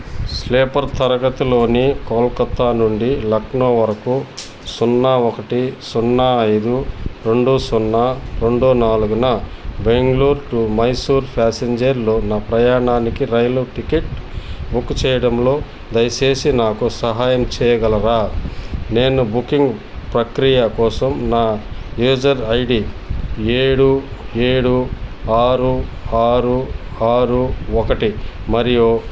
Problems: constant background noise